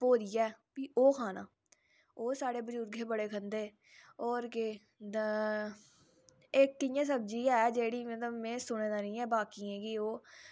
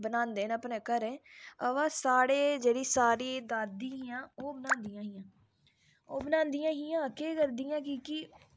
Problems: none marked